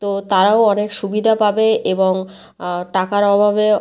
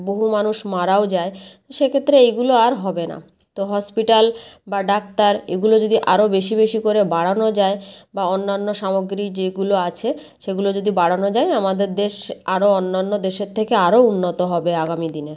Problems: none marked